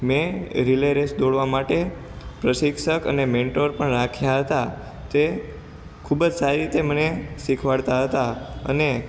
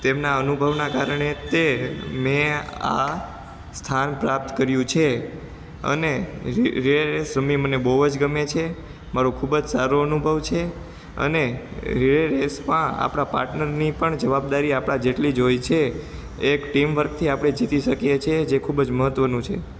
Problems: constant background noise